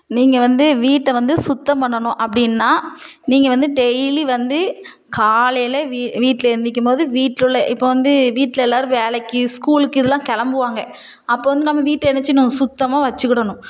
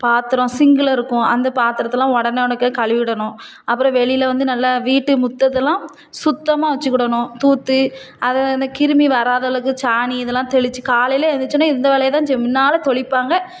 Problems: none marked